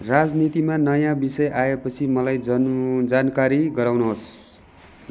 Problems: background sounds at intervals